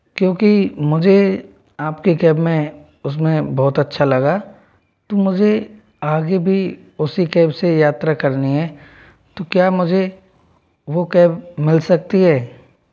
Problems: background sounds at intervals